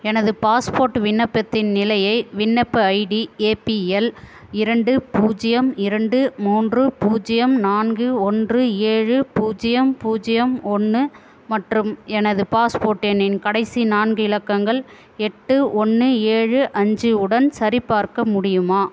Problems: constant background noise